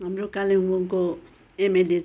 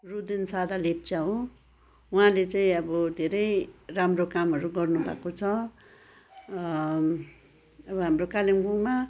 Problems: continuous background conversations